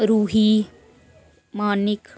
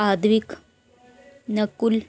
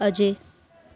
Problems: none marked